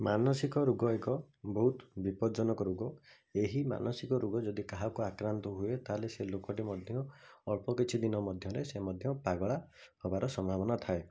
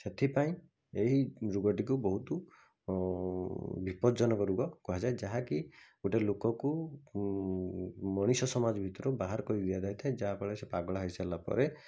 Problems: none marked